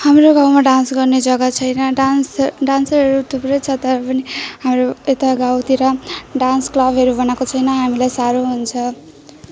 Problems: none marked